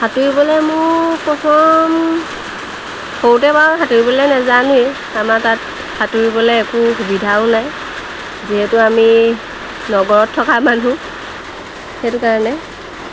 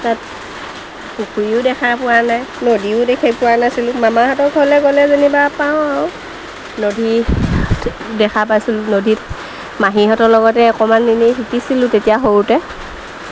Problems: constant background noise